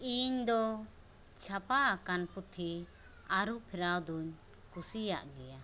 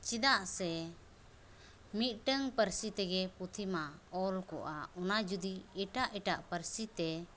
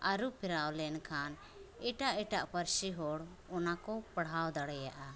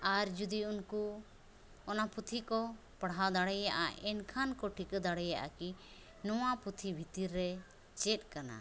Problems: none marked